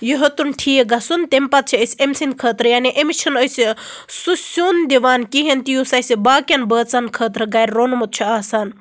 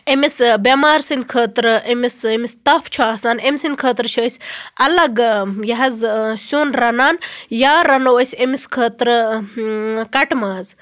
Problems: constant background noise